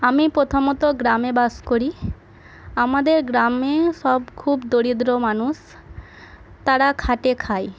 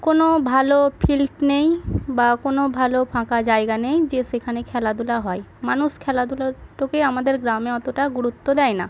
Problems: background sounds at intervals, continuous background conversations